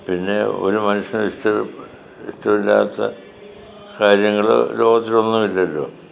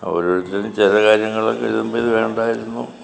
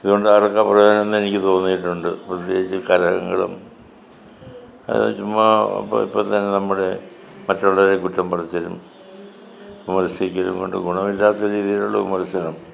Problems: background sounds at intervals